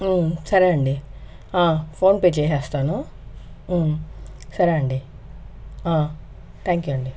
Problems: constant background noise